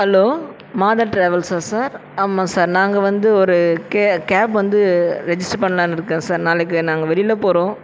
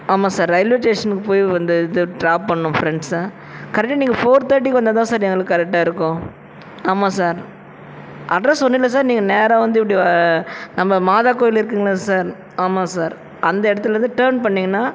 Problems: constant background noise, continuous background conversations